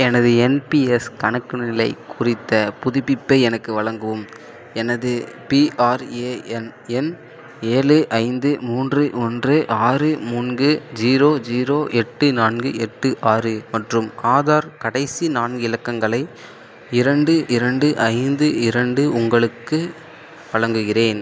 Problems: constant background noise